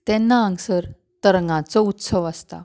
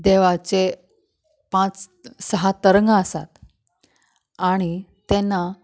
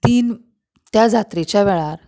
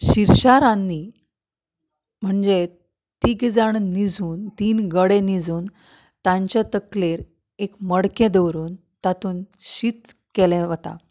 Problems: background sounds at intervals